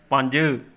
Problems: none marked